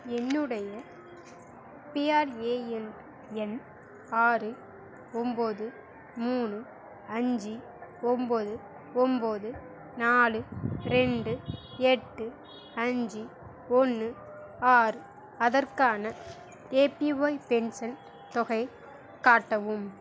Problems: none marked